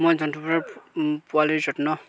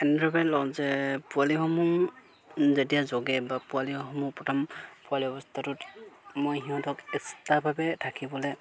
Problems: constant background noise